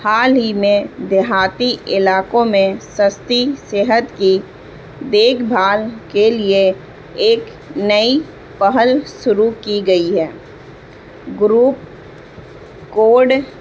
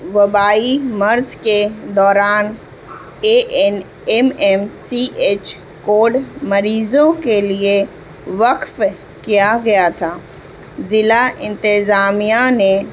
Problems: constant background noise